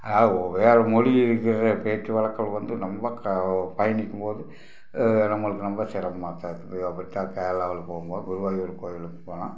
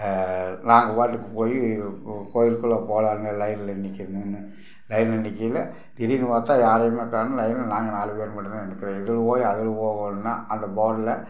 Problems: background sounds at intervals